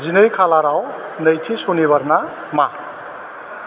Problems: constant background noise